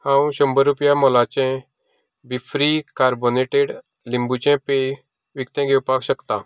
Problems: none marked